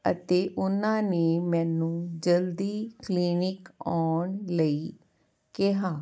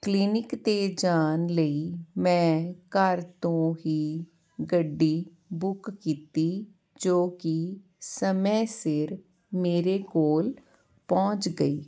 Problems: constant background noise